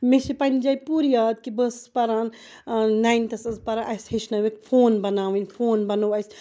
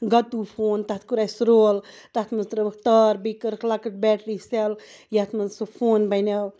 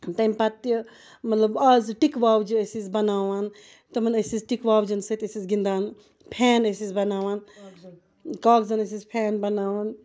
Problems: background sounds at intervals